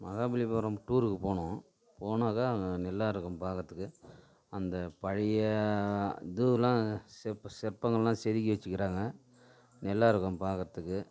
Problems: background sounds at intervals